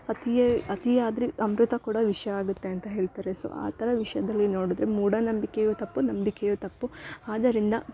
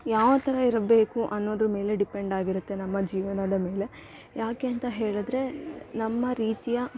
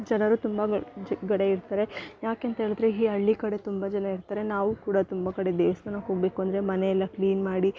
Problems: none marked